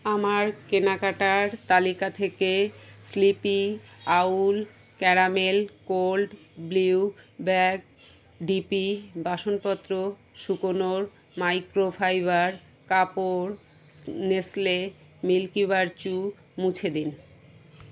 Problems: none marked